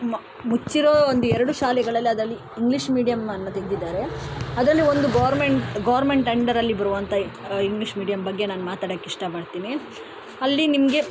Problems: background sounds at intervals